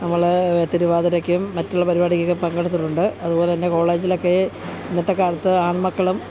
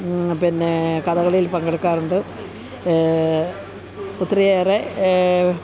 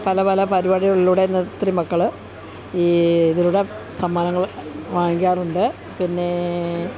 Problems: constant background noise, background conversations at intervals